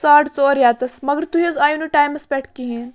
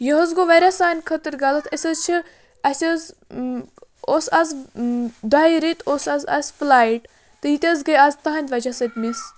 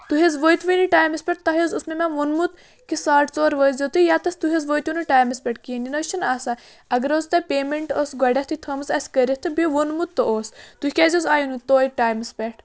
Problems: background sounds at intervals, background conversations at intervals